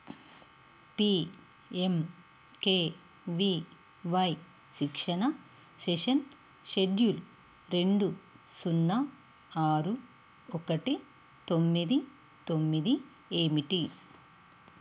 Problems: constant background noise